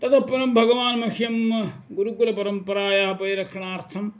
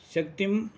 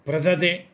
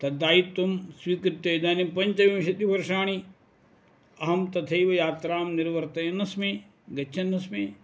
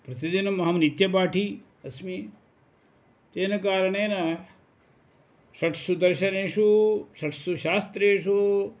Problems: none marked